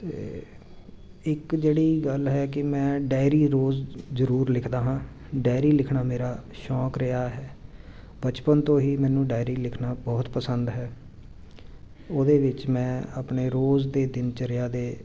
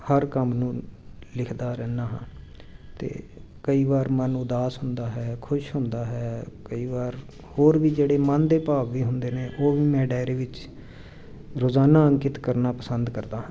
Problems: constant background noise